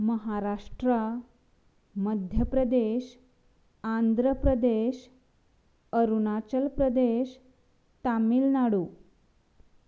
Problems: background sounds at intervals